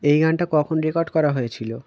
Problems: constant background noise